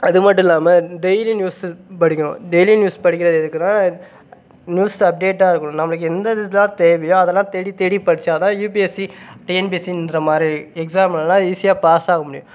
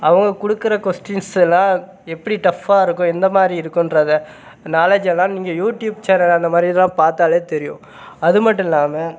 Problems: none marked